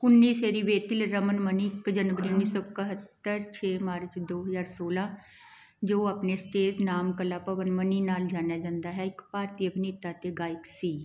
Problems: continuous background conversations